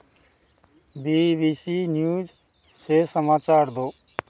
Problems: constant background noise